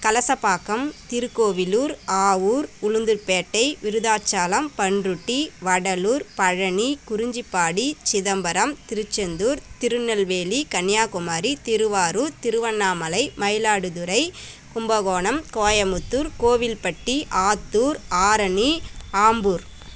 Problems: background sounds at intervals